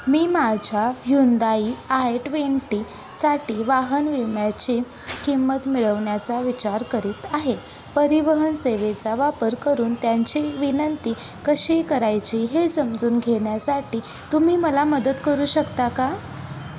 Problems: constant background noise